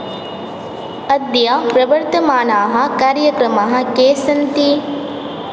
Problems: background sounds at intervals